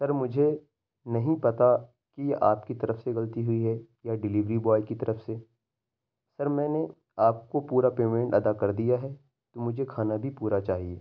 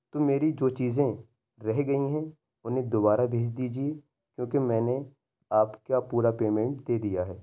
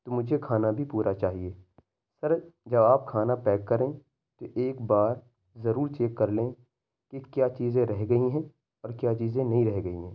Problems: none marked